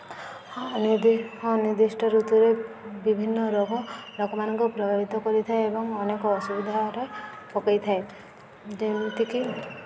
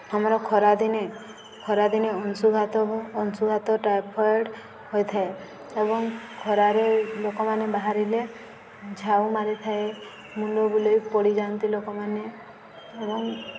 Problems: constant background noise, continuous background conversations